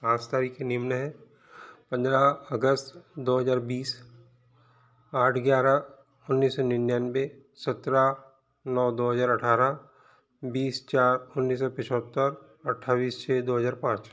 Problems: none marked